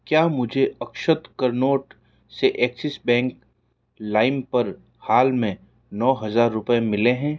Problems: none marked